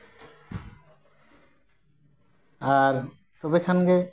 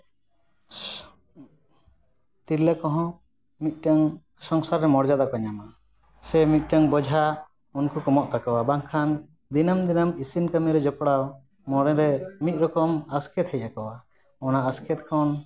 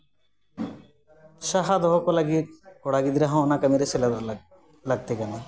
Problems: constant background noise, background conversations at intervals